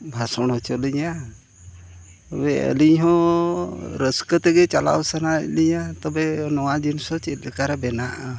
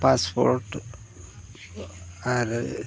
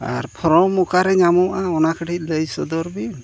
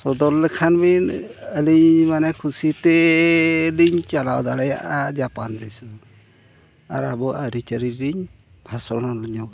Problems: constant background noise